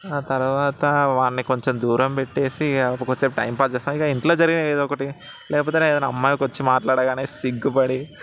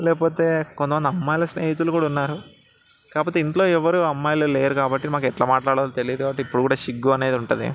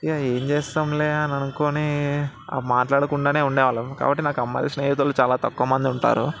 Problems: background sounds at intervals, background conversations at intervals